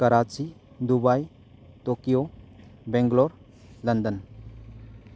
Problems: constant background noise